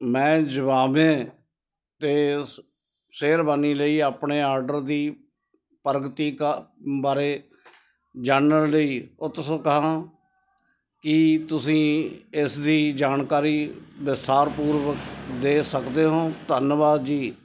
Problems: none marked